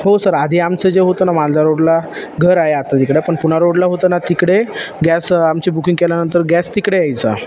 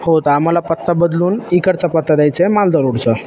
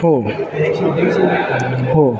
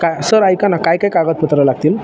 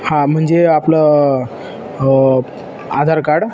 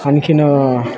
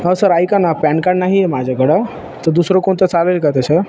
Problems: constant background noise, continuous background conversations